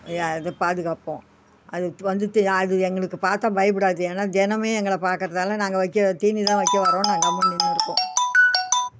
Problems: background sounds at intervals